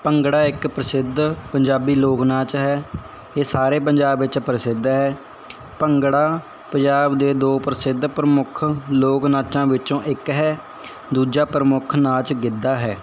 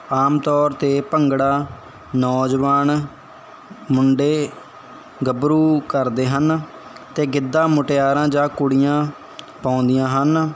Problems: none marked